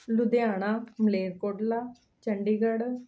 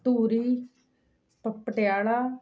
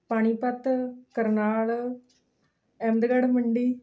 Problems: background sounds at intervals